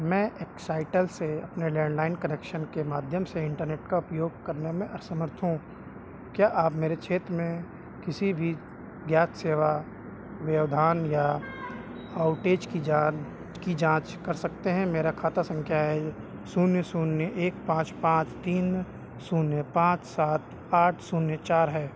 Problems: none marked